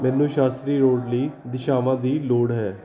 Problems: continuous background conversations